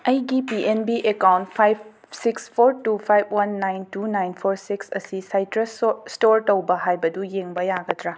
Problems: background sounds at intervals, background conversations at intervals